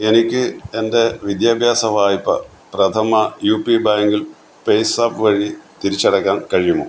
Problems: constant background noise